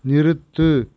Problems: none marked